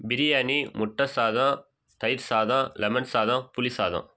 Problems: none marked